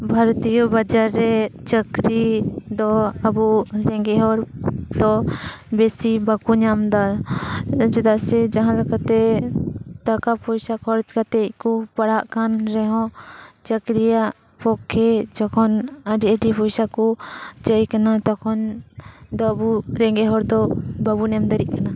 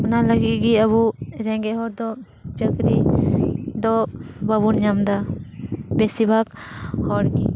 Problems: constant background noise